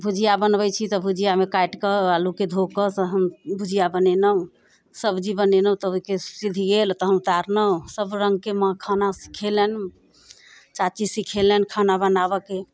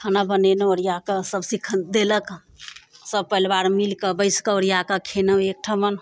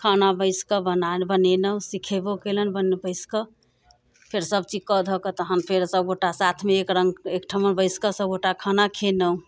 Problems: none marked